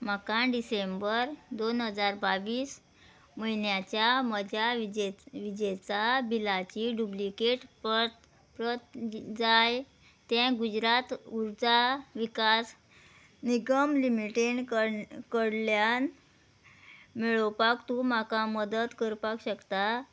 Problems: none marked